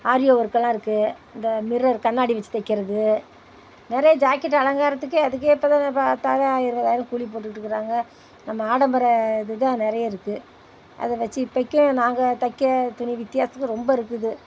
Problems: none marked